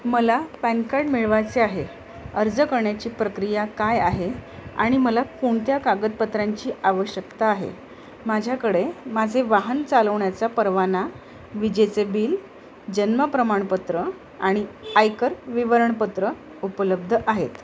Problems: constant background noise